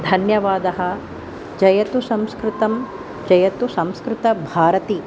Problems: none marked